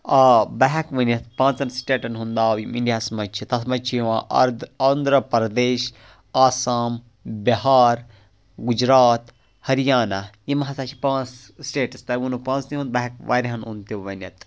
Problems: none marked